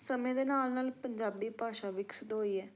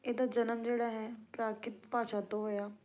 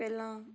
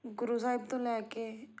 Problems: none marked